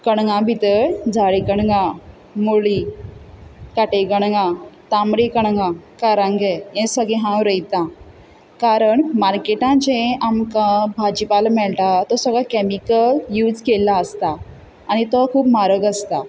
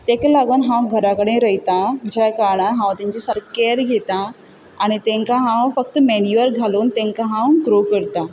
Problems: none marked